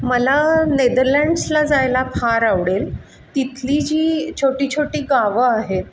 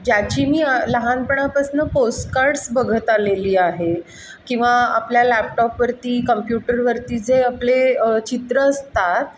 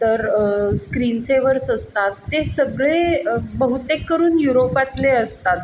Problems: none marked